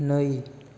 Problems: constant background noise